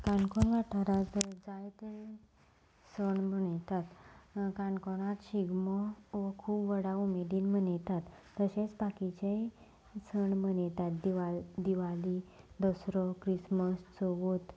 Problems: background sounds at intervals